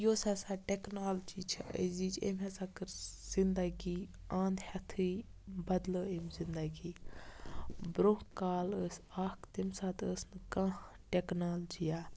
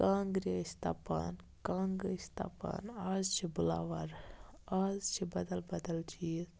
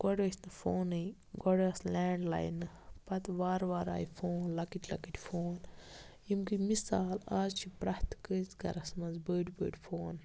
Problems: background sounds at intervals